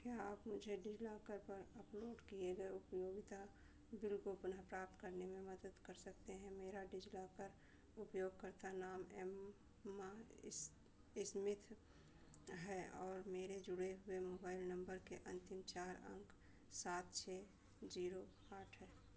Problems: constant background noise, low volume